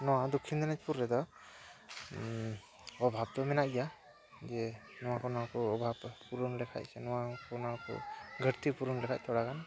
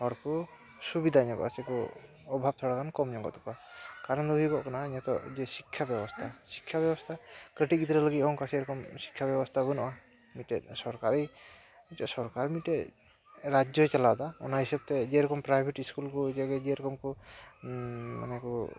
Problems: none marked